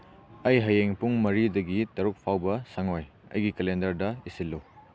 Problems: background sounds at intervals